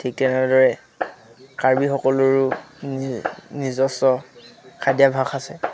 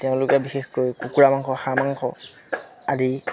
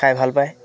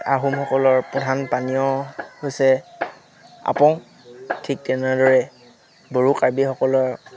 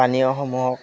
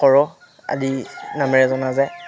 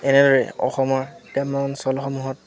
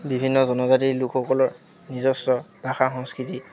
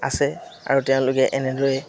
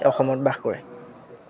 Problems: constant background noise, background conversations at intervals